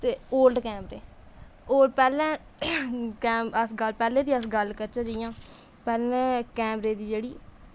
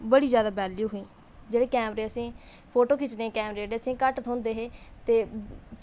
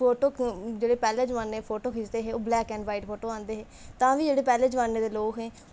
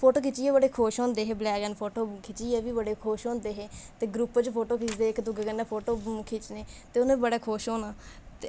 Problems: constant background noise